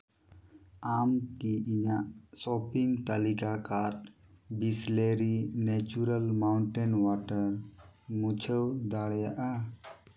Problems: background sounds at intervals